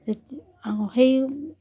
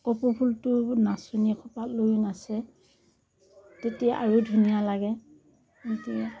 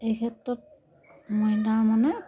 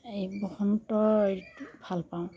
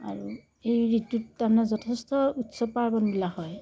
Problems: none marked